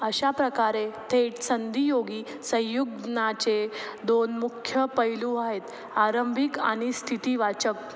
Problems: constant background noise